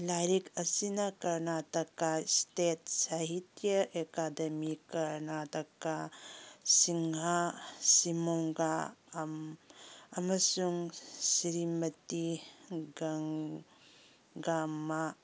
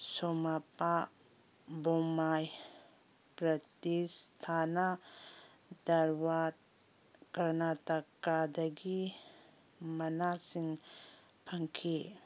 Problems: none marked